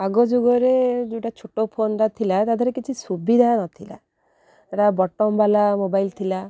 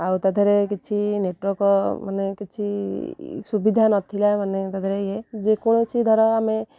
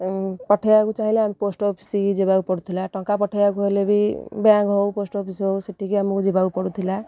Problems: none marked